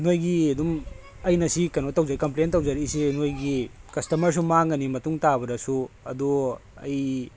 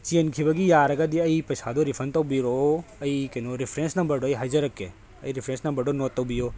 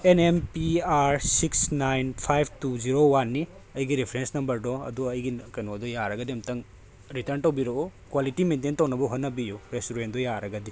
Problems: background sounds at intervals, background conversations at intervals